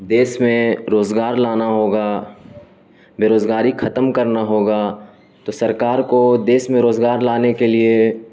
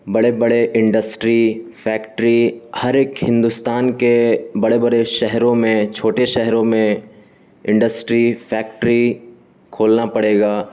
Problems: constant background noise